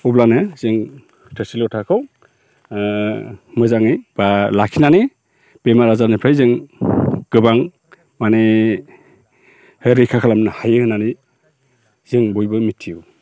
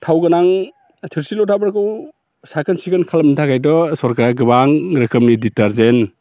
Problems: none marked